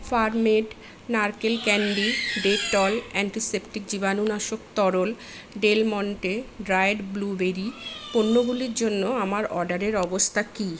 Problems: none marked